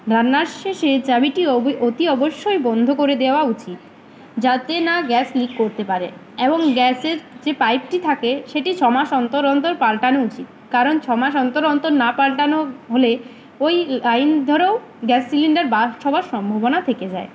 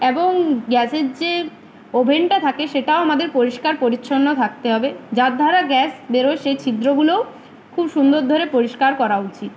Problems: none marked